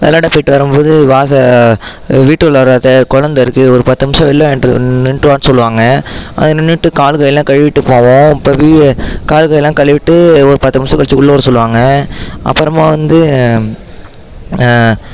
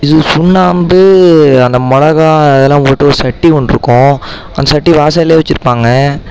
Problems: background sounds at intervals, background conversations at intervals